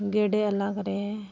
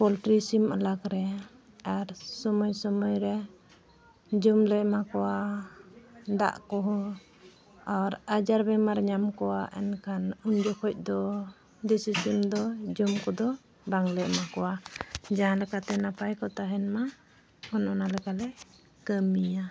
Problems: background sounds at intervals